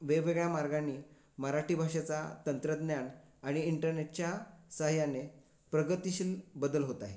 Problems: constant background noise